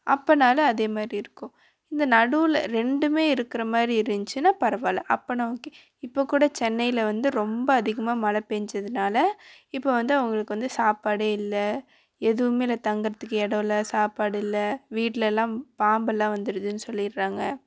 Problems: constant background noise